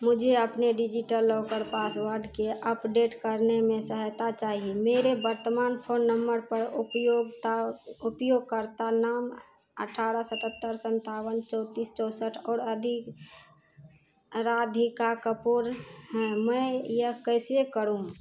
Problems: constant background noise